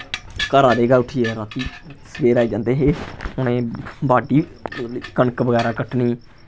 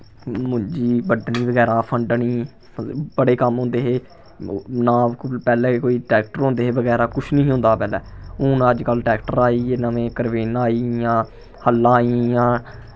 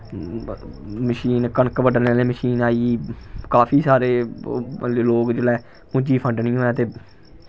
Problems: none marked